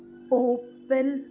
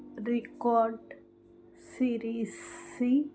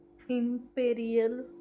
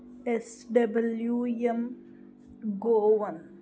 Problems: none marked